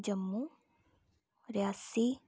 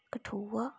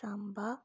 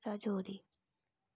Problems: background conversations at intervals, low volume